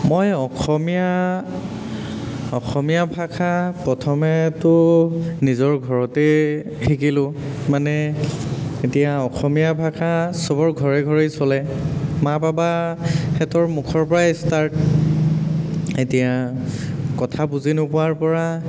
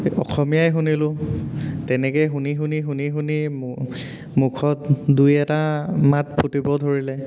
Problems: constant background noise, echo